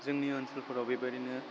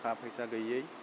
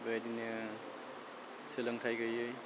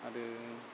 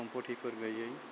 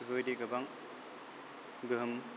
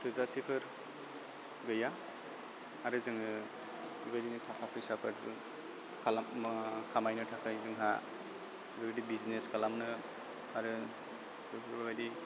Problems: constant background noise